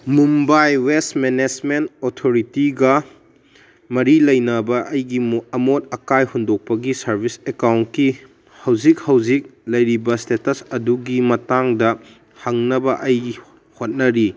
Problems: none marked